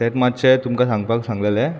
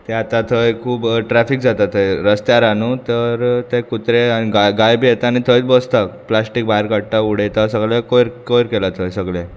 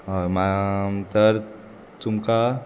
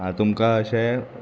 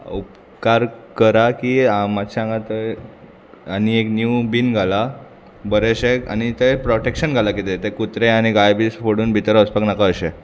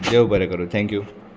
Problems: constant background noise, background conversations at intervals